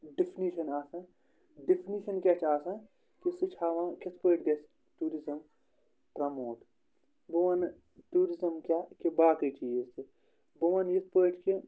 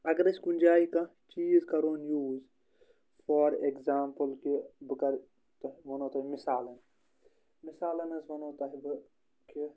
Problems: none marked